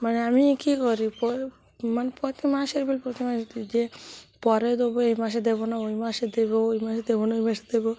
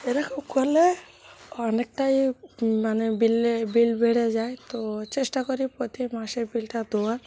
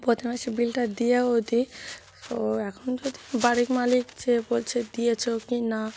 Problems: none marked